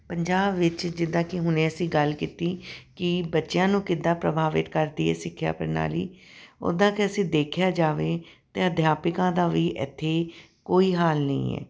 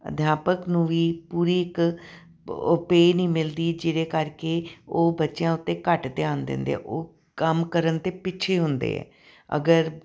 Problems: background sounds at intervals